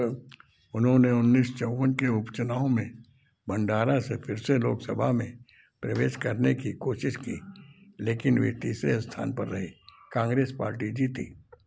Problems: constant background noise